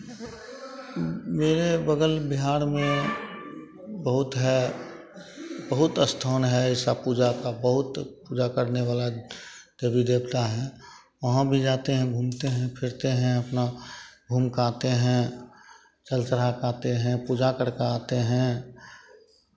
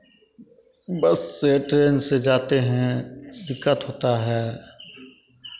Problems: none marked